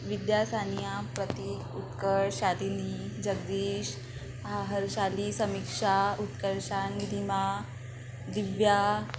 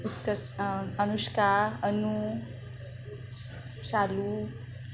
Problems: constant background noise, background conversations at intervals